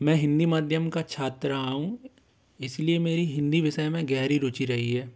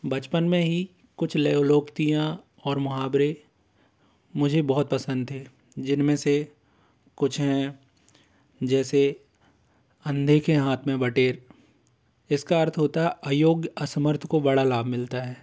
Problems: none marked